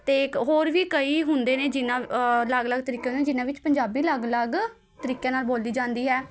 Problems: constant background noise